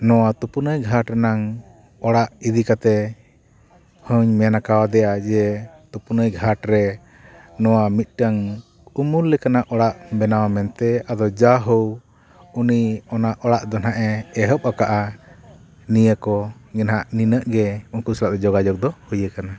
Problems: background conversations at intervals